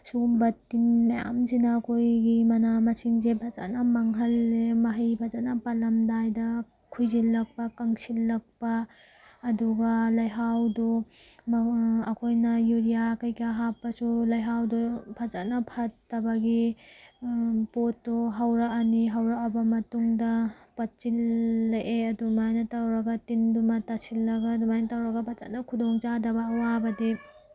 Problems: background sounds at intervals